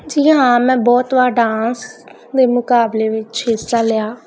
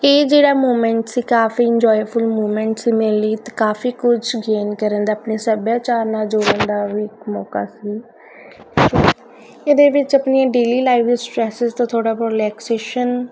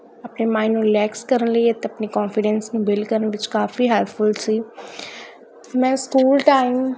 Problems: none marked